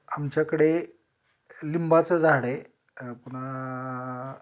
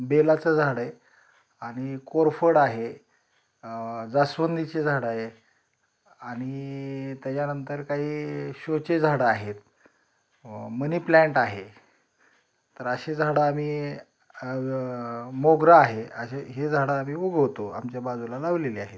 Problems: none marked